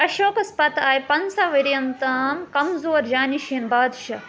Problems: constant background noise